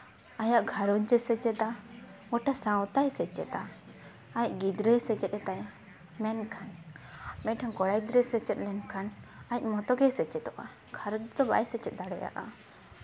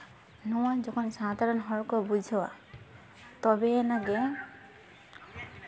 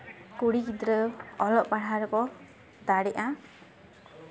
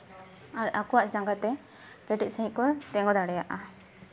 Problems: background sounds at intervals, background conversations at intervals